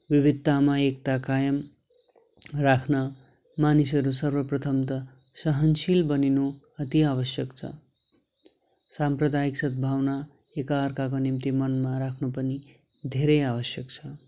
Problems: constant background noise